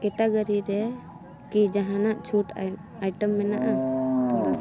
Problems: constant background noise